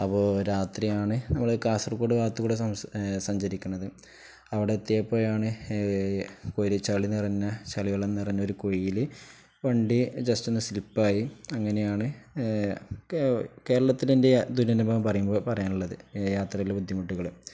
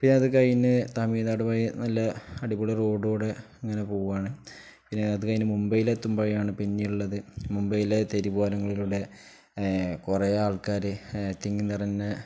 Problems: none marked